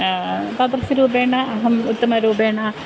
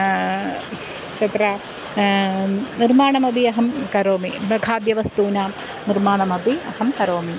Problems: constant background noise